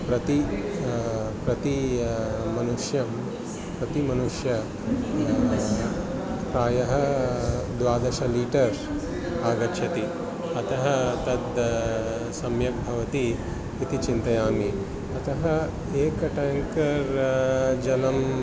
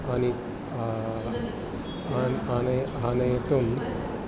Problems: constant background noise, continuous background conversations